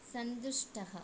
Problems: low volume